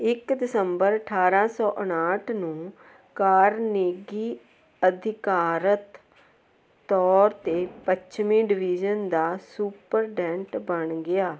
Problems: none marked